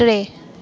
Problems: constant background noise